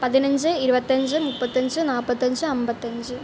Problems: constant background noise